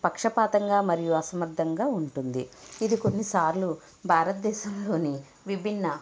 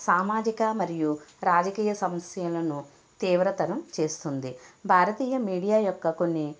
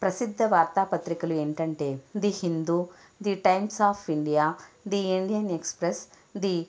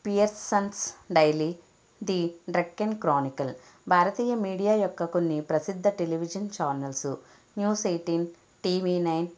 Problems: background sounds at intervals